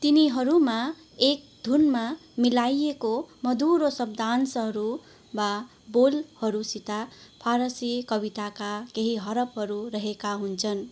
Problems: constant background noise, continuous background conversations